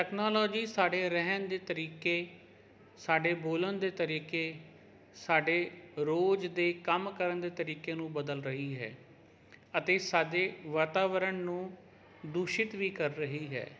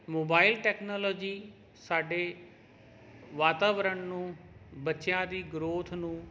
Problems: none marked